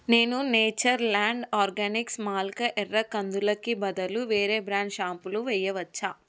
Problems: none marked